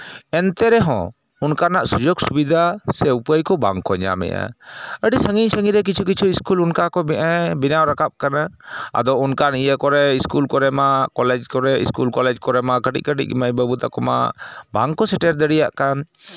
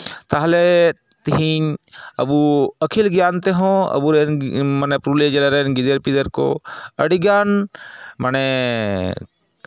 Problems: none marked